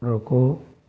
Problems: constant background noise